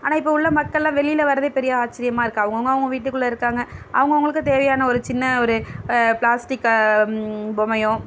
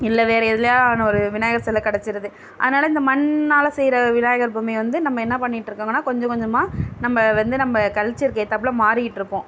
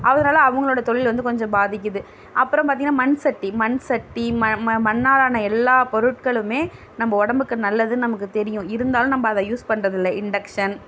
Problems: none marked